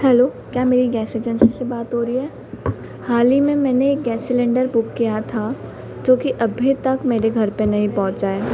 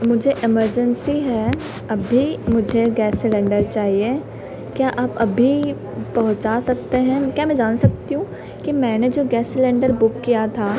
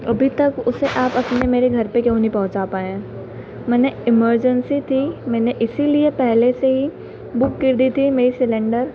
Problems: constant background noise